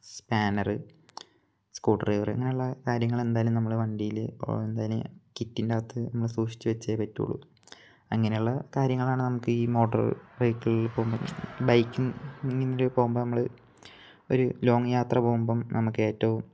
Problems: none marked